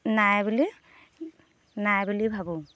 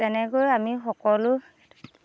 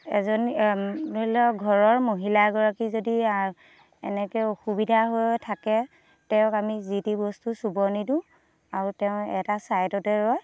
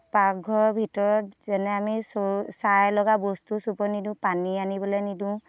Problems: background sounds at intervals